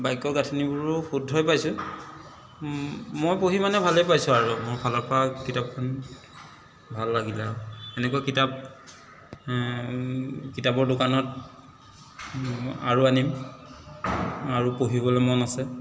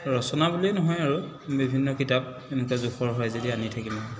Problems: constant background noise